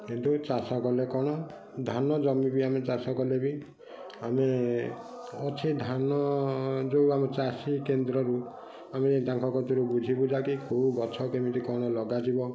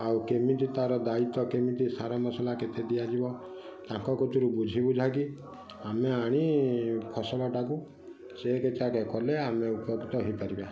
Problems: constant background noise, continuous background conversations